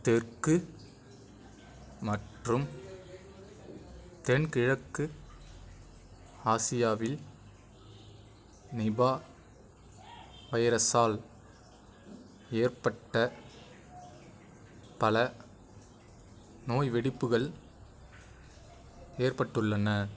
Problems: none marked